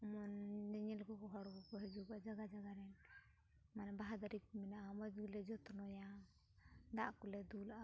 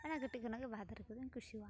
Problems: background sounds at intervals